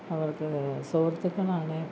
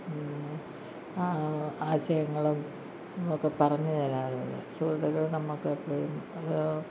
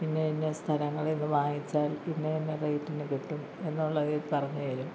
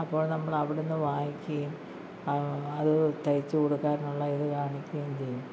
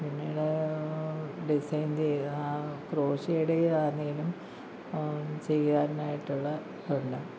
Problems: low volume